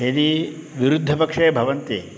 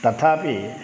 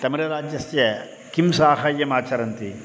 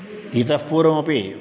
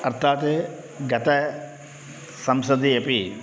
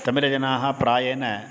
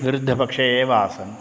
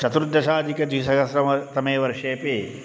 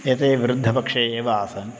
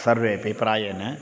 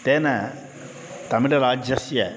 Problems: constant background noise